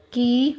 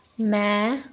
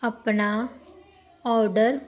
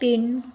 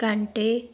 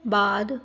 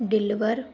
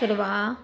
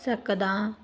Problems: background sounds at intervals